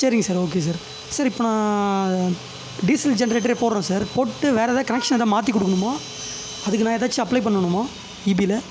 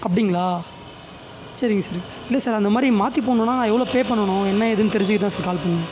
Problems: constant background noise